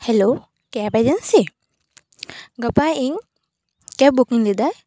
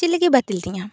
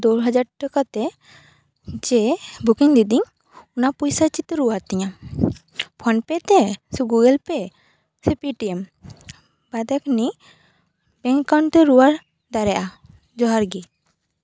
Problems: none marked